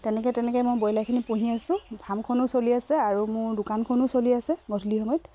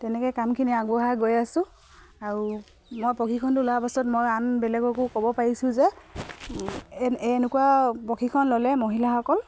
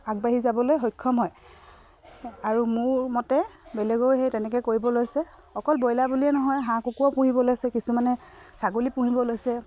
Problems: none marked